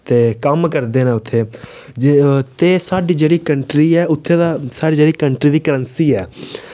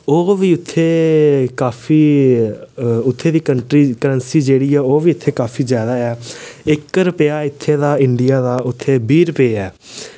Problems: none marked